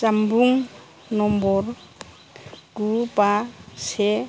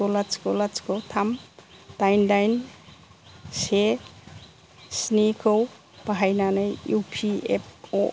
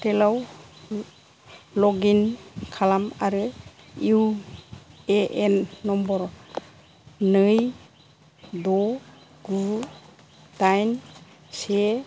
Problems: constant background noise, low volume